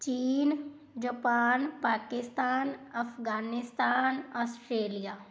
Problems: background sounds at intervals